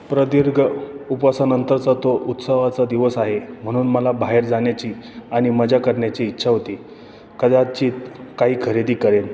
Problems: background sounds at intervals